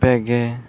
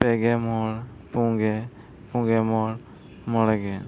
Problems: background sounds at intervals